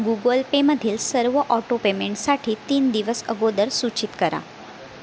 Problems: constant background noise